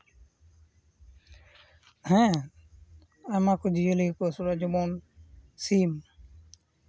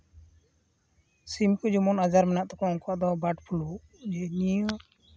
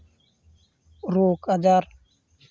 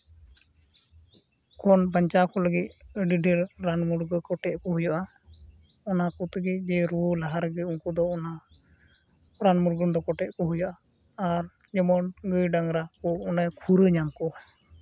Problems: background sounds at intervals